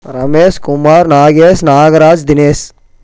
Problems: none marked